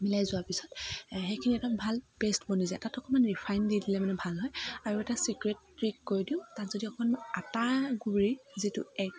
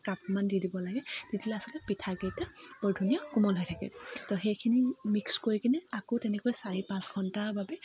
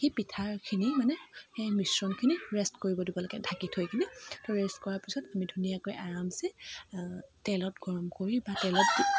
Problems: none marked